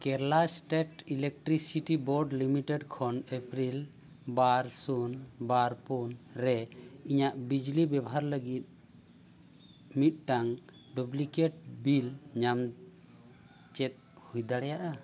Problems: none marked